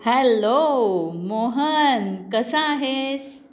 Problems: background sounds at intervals